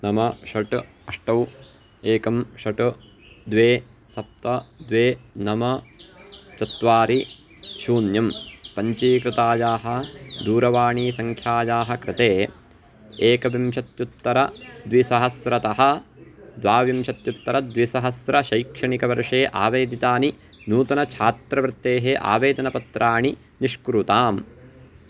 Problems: constant background noise